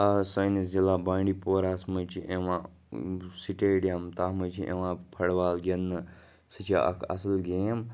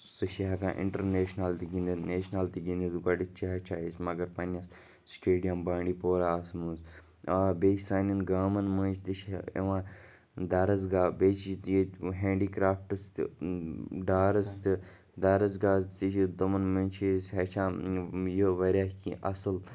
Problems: background conversations at intervals